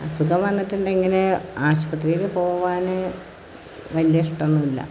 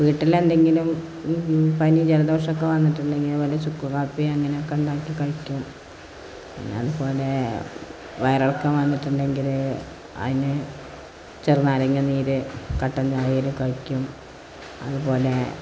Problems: constant background noise